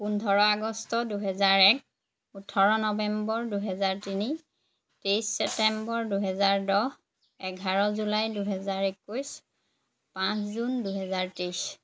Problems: background sounds at intervals